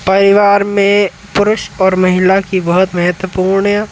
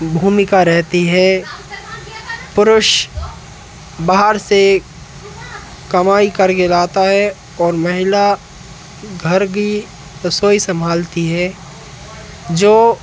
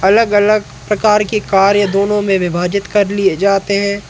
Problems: none marked